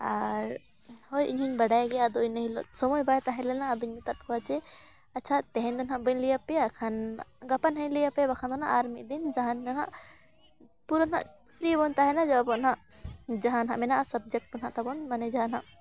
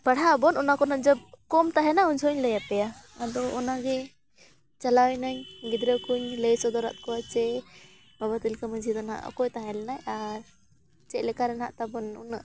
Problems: background sounds at intervals, continuous background conversations